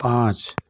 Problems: none marked